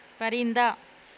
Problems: constant background noise